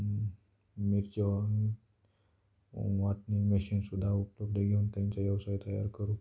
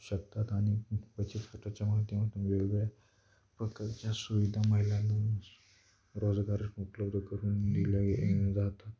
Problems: background sounds at intervals